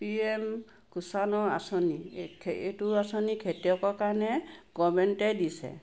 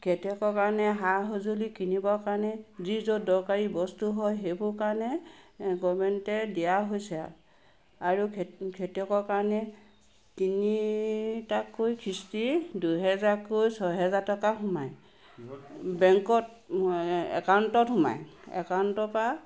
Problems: background sounds at intervals